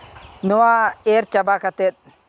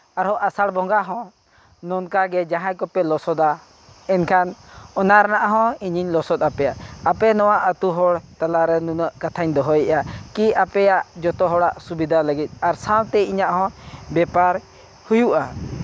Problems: background sounds at intervals